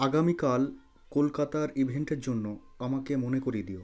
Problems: continuous background conversations